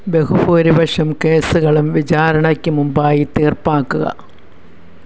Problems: background sounds at intervals